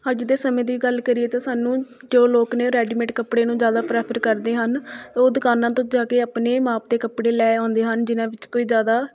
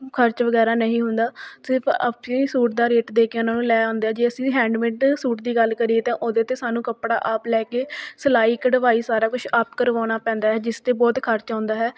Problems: background conversations at intervals